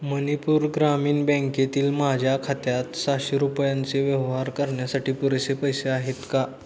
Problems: none marked